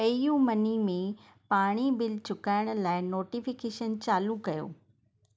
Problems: none marked